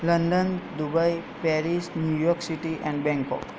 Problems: none marked